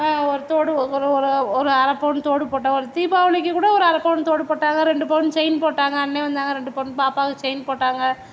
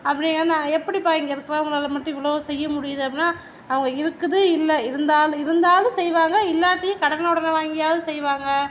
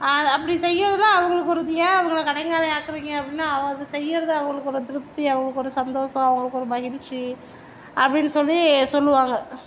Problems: none marked